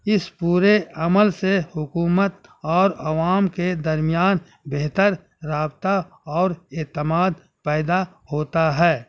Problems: none marked